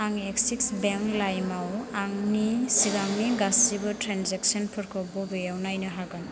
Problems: constant background noise